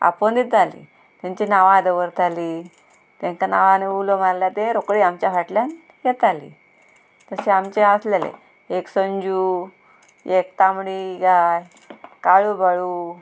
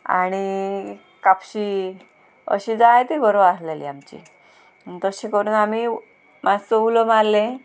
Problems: constant background noise